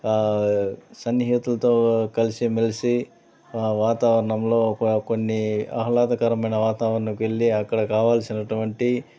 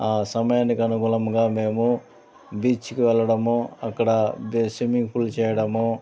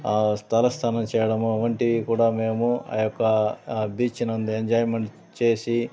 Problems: constant background noise